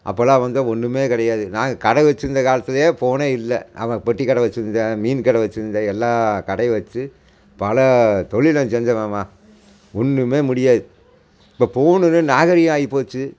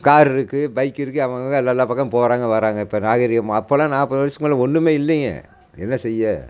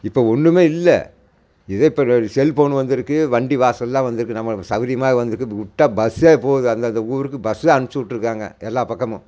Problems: none marked